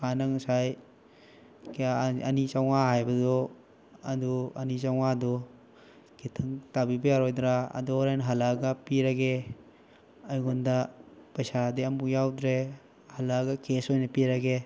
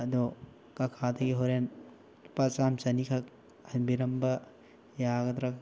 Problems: none marked